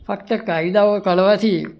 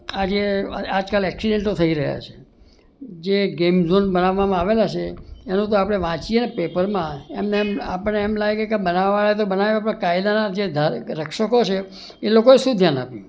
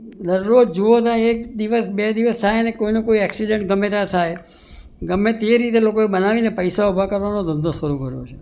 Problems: none marked